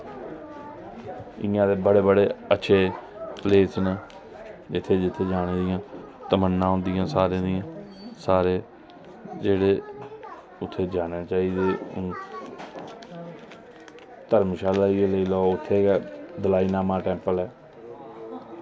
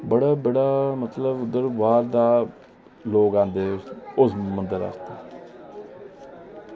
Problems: none marked